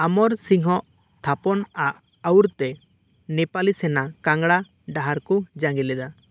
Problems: none marked